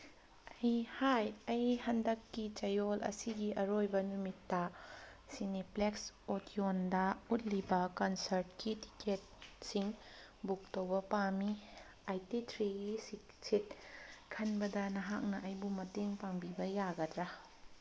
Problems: background sounds at intervals